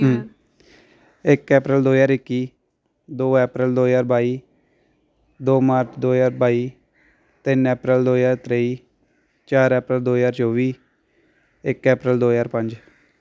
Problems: none marked